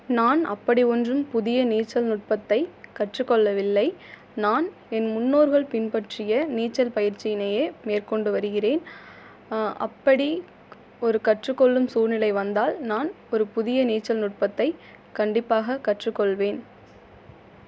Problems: none marked